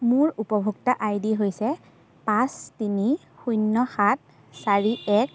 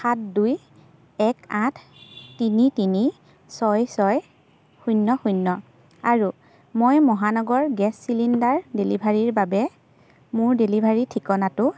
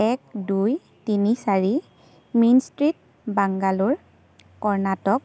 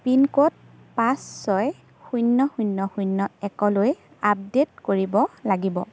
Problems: constant background noise, background conversations at intervals